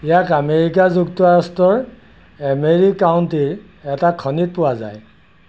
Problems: none marked